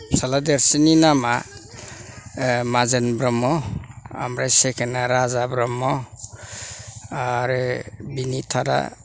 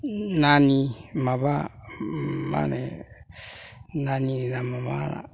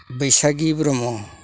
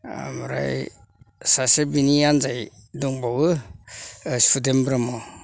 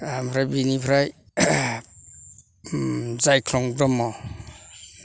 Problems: low volume